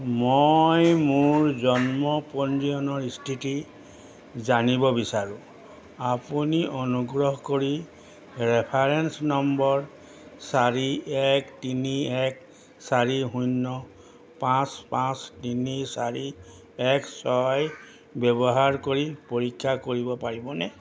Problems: none marked